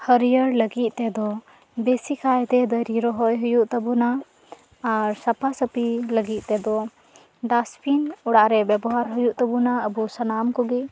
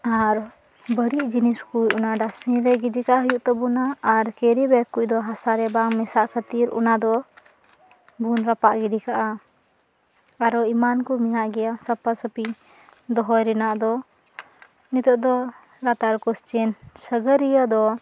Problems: constant background noise, background conversations at intervals